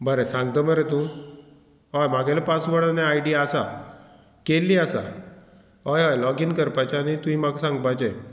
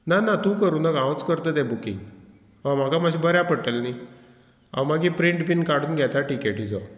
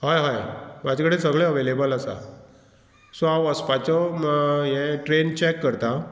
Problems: none marked